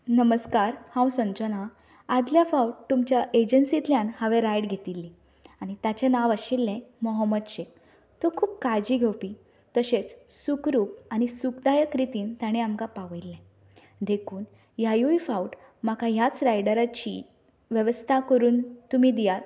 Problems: none marked